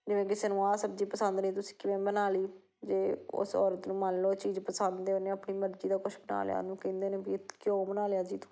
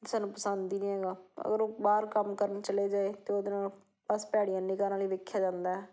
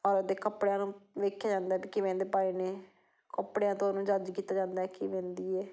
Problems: none marked